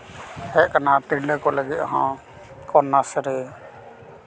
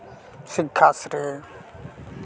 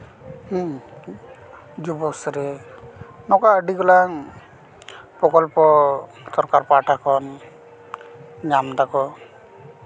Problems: none marked